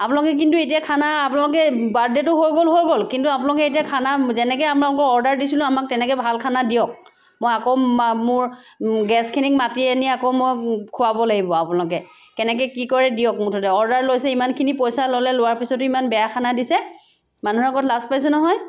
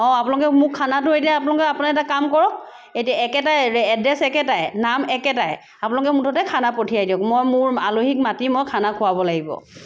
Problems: none marked